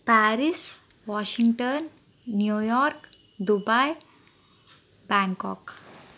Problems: constant background noise